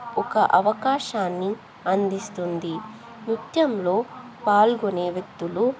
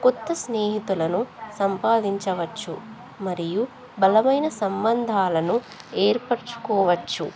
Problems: continuous background conversations